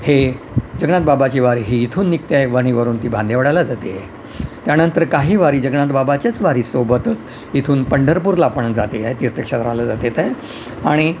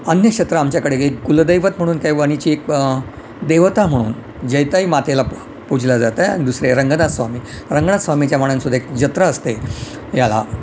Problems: none marked